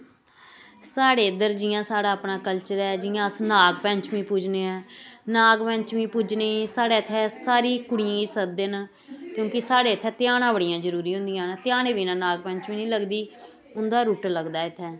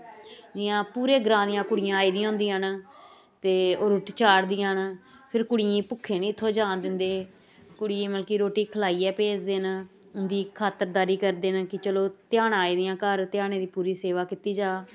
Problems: constant background noise